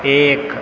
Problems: constant background noise